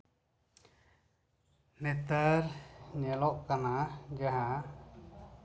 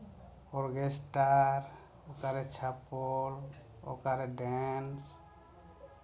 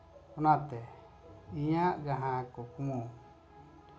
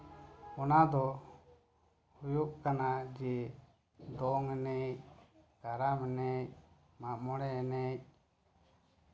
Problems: background sounds at intervals